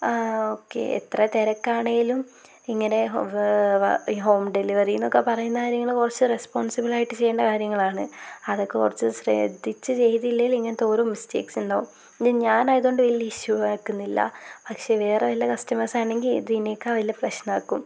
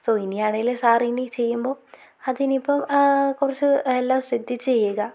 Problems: constant background noise